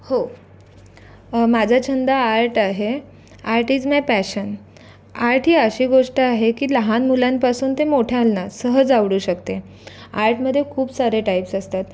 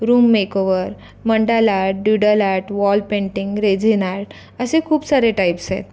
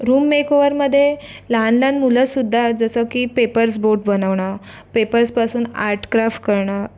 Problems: none marked